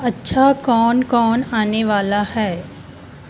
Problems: constant background noise